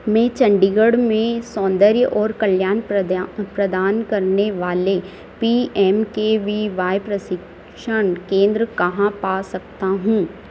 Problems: constant background noise